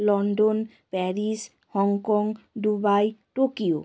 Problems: constant background noise